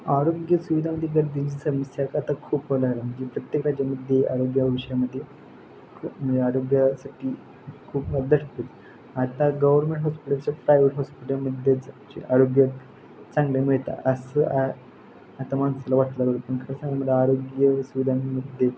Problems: constant background noise